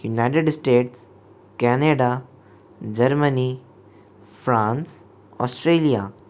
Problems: none marked